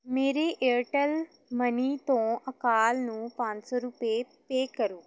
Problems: none marked